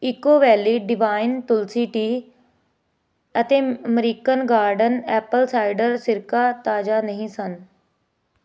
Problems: none marked